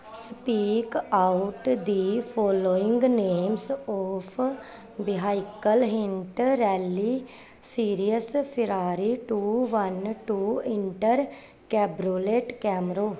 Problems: none marked